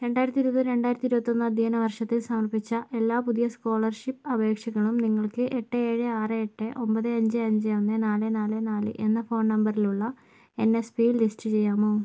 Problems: low volume